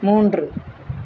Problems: constant background noise